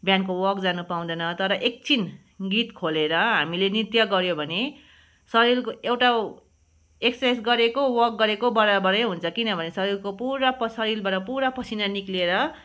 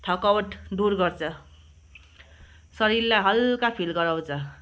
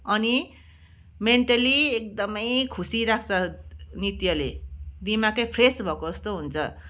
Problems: none marked